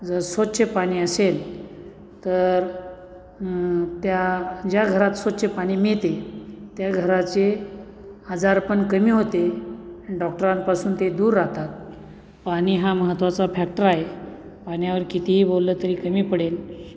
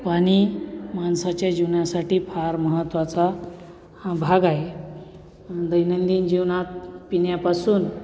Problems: constant background noise